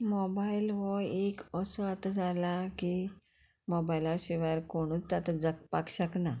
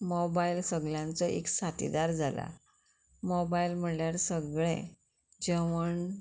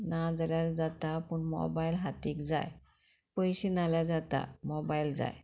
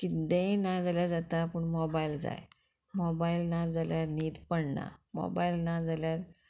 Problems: none marked